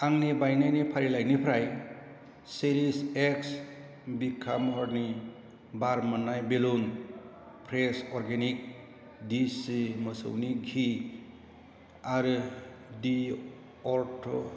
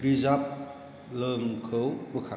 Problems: constant background noise